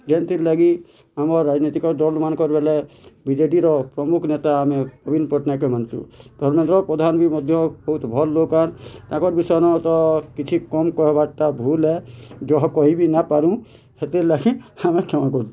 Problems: constant background noise